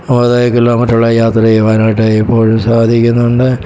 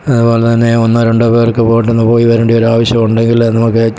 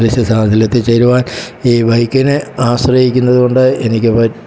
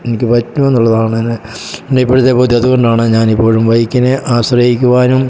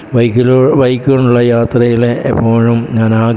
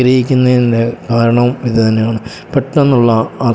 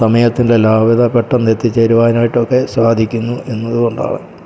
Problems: background sounds at intervals